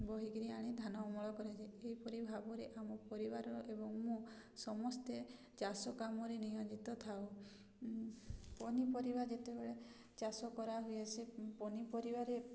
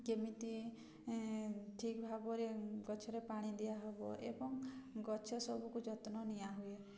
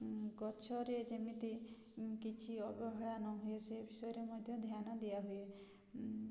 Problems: none marked